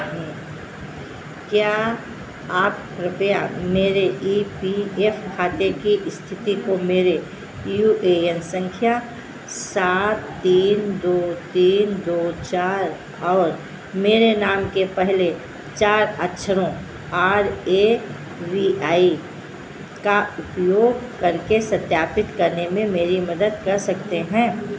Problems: constant background noise